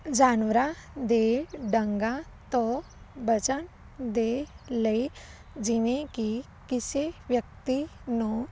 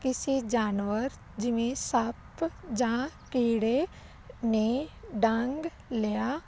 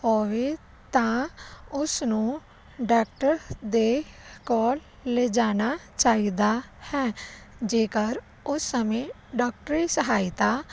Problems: none marked